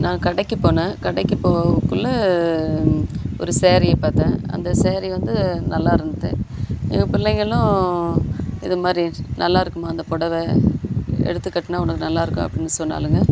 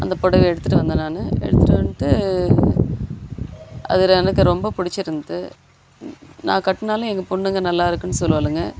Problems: constant background noise